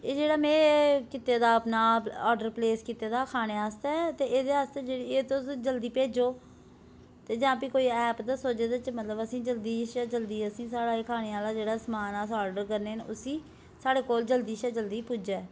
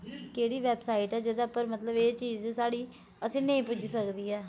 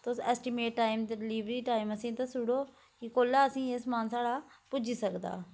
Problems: constant background noise